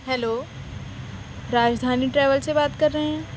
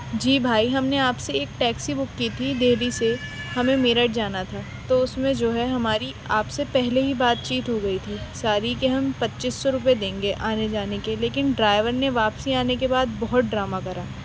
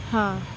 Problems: constant background noise